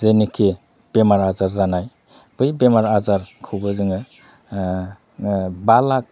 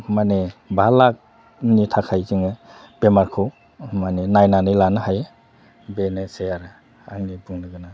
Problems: constant background noise